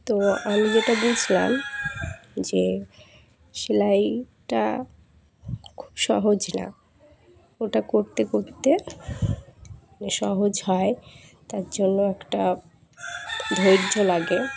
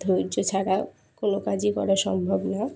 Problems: background sounds at intervals, background conversations at intervals